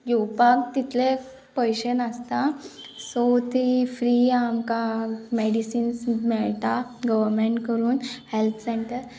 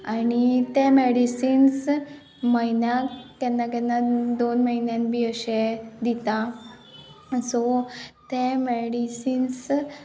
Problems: background sounds at intervals